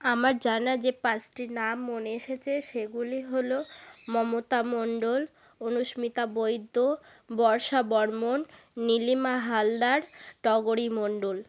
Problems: background conversations at intervals